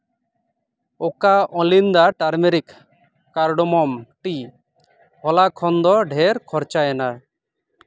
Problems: background sounds at intervals